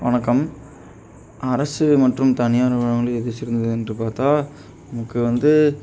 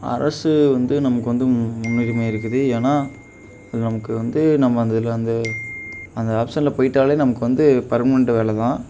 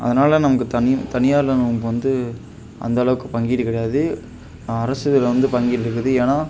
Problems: background sounds at intervals